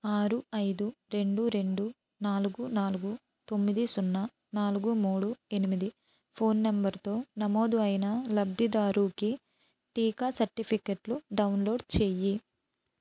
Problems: none marked